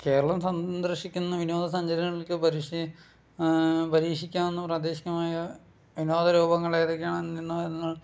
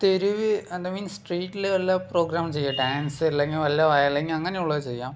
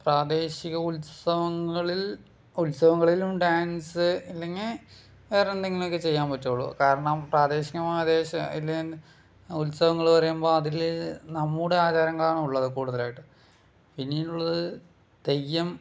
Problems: none marked